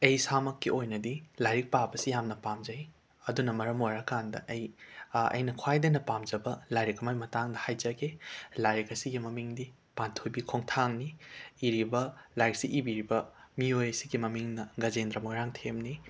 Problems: background sounds at intervals